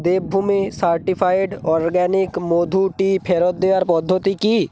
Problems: constant background noise